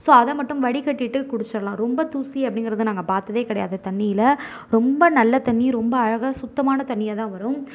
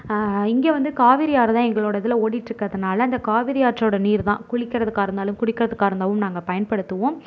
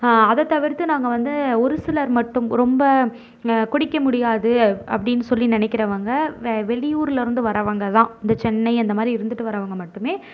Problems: none marked